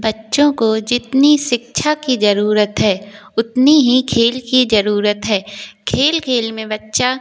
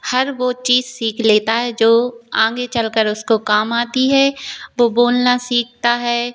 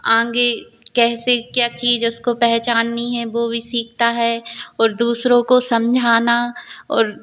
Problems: constant background noise